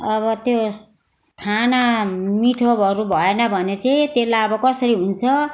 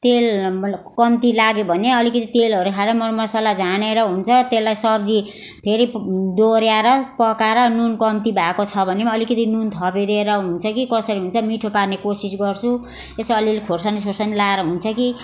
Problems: constant background noise